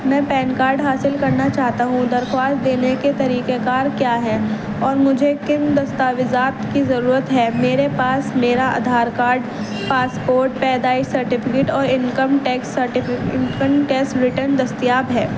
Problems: constant background noise, low volume